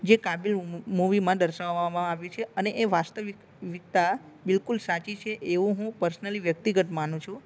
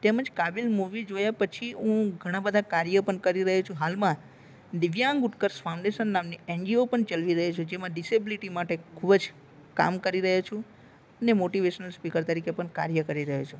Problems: none marked